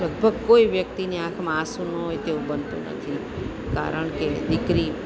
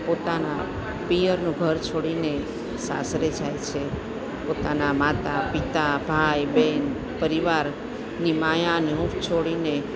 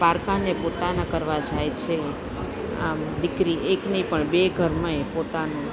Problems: constant background noise